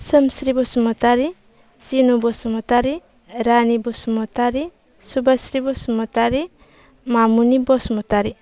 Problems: low volume